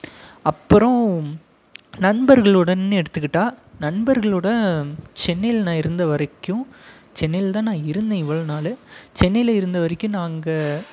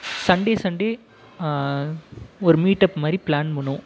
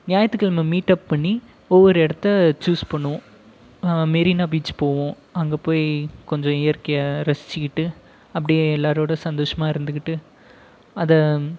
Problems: background conversations at intervals